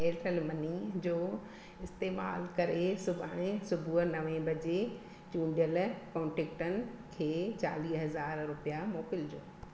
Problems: constant background noise, echo